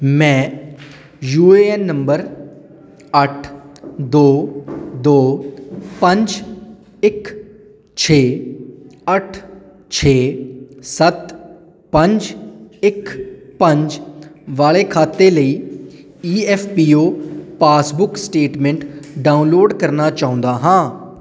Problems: background sounds at intervals